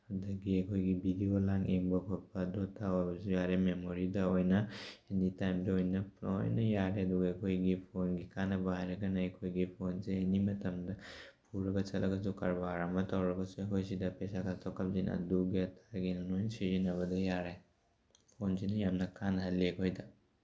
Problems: background sounds at intervals